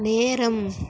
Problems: none marked